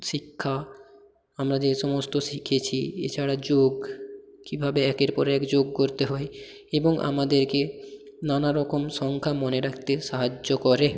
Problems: echo